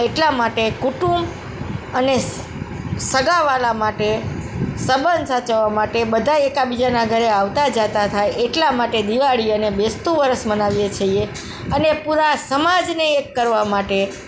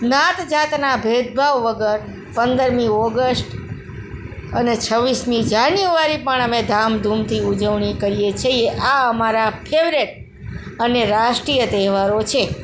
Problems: background sounds at intervals, background conversations at intervals